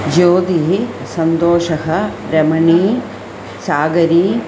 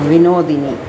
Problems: constant background noise